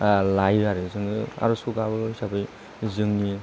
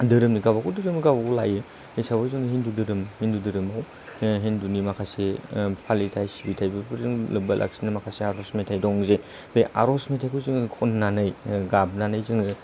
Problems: none marked